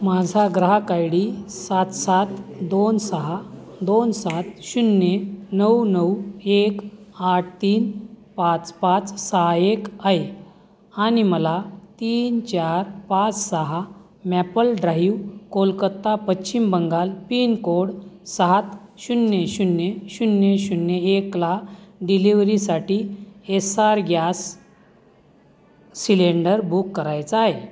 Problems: constant background noise, continuous background conversations